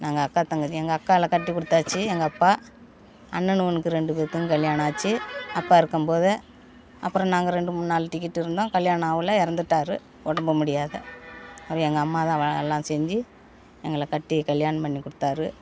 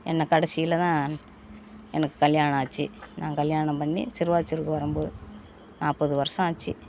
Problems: none marked